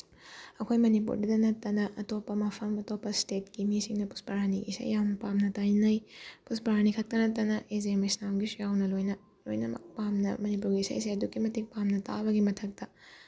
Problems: background sounds at intervals